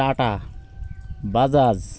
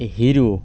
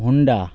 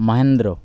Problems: constant background noise